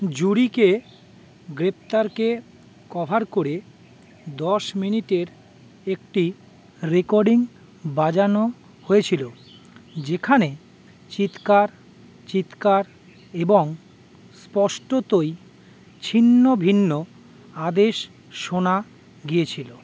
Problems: constant background noise